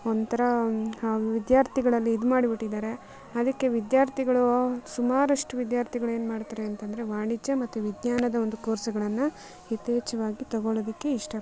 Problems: background sounds at intervals